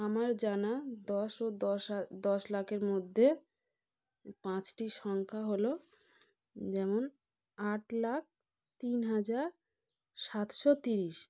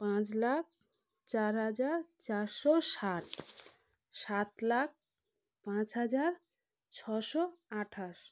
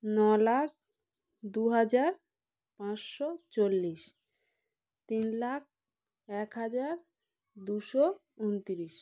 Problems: constant background noise, background conversations at intervals